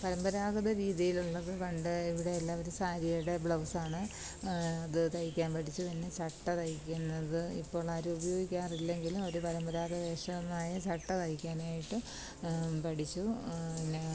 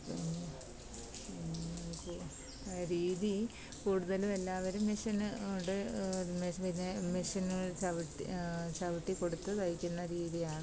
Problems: constant background noise